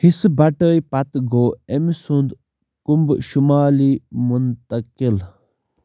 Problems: background sounds at intervals